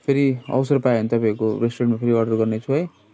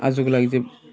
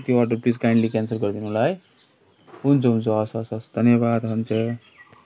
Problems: constant background noise